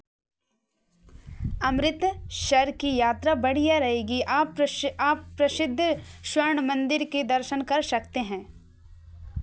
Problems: none marked